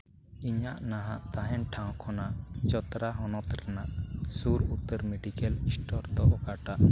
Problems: none marked